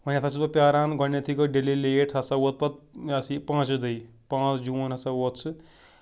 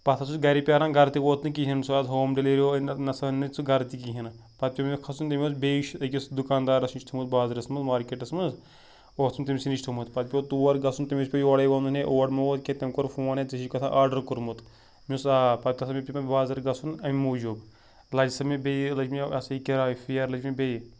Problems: background sounds at intervals